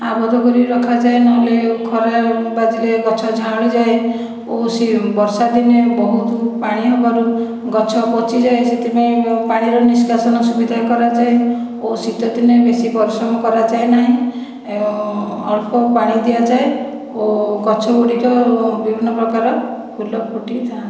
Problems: echo